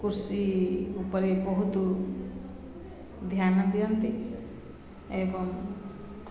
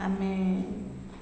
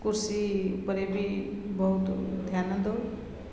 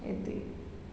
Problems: constant background noise, continuous background conversations